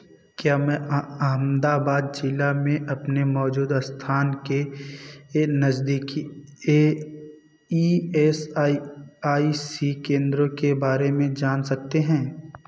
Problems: background sounds at intervals